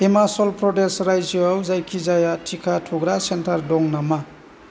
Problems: constant background noise